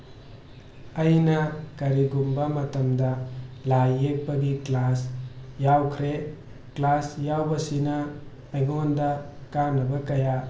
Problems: background sounds at intervals